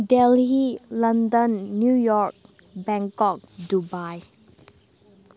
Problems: constant background noise, background conversations at intervals